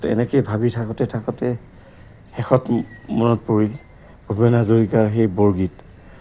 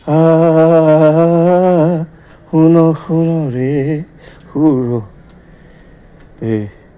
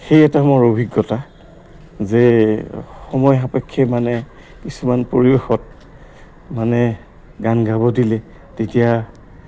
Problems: background sounds at intervals